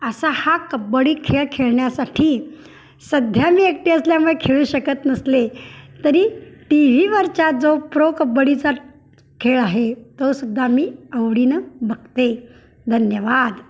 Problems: background sounds at intervals